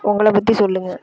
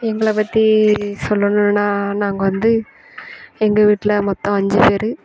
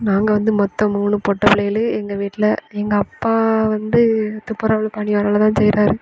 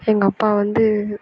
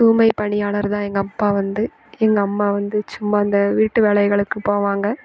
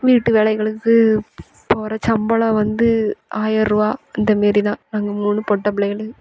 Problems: none marked